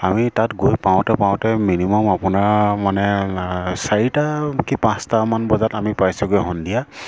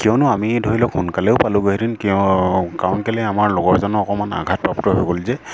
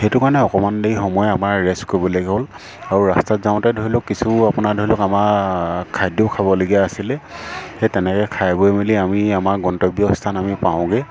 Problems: background sounds at intervals